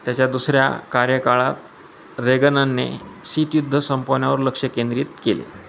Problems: constant background noise, continuous background conversations